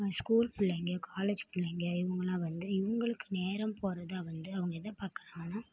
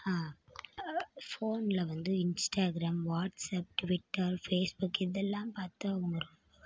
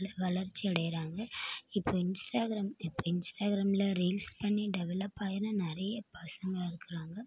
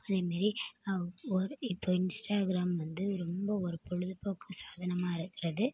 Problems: low volume